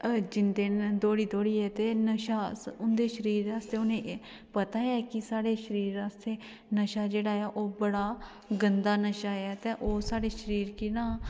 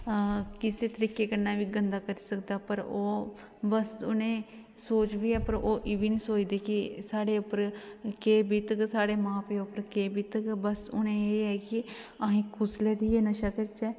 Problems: none marked